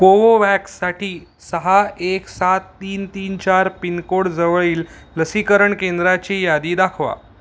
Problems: background sounds at intervals